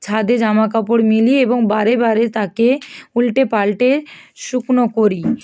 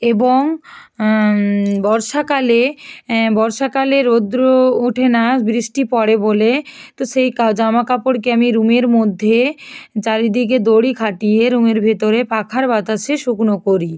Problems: background sounds at intervals